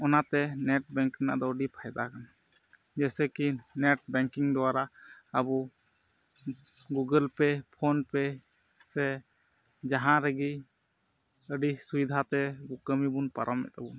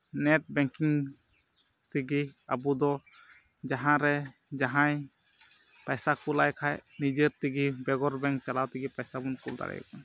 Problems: background sounds at intervals